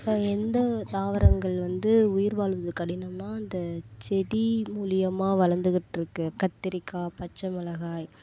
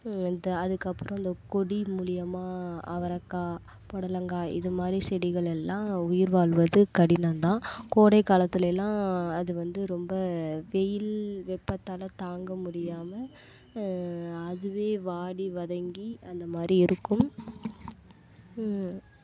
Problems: background sounds at intervals